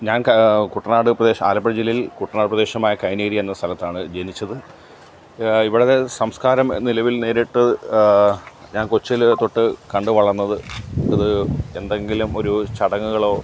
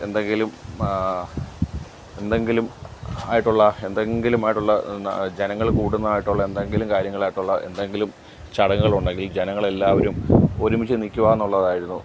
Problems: none marked